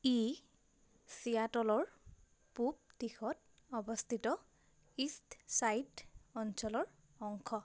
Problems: constant background noise